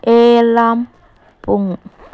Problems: background sounds at intervals